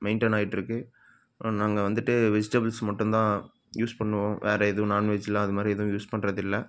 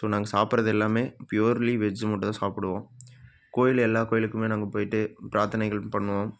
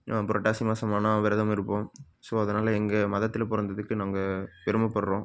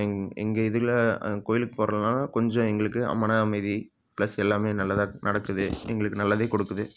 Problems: none marked